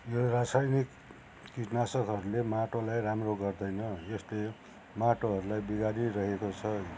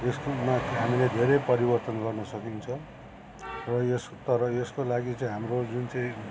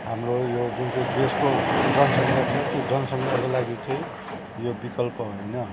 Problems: constant background noise